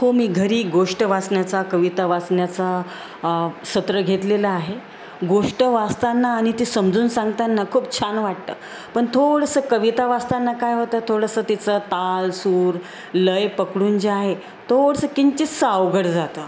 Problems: constant background noise